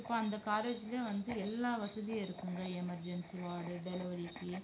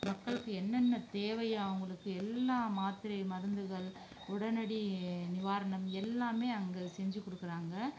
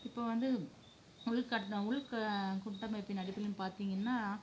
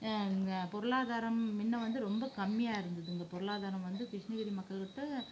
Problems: low volume